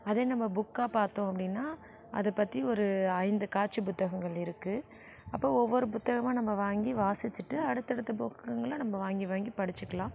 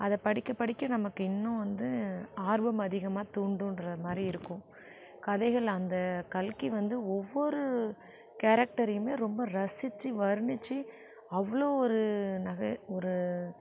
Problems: none marked